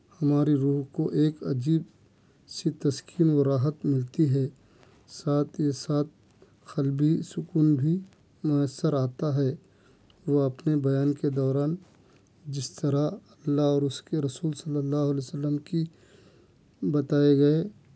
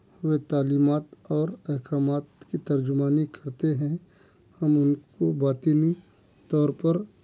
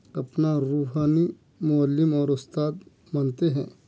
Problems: none marked